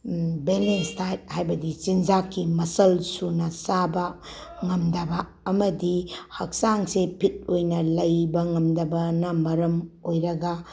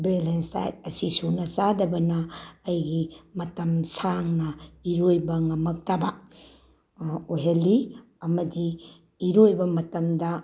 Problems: none marked